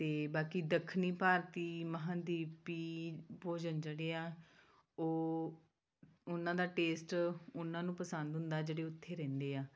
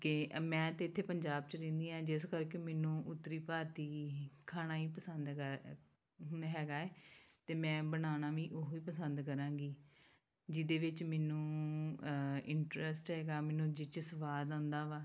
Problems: background sounds at intervals